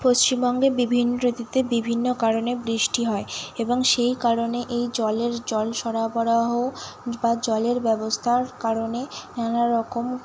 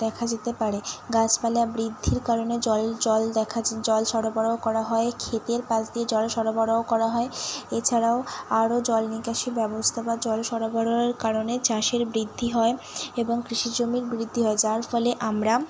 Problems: none marked